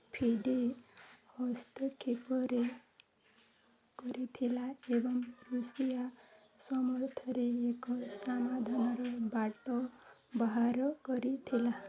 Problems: low volume